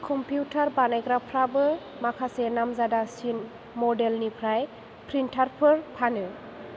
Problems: constant background noise